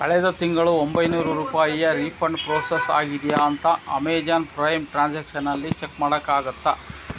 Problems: background sounds at intervals, background conversations at intervals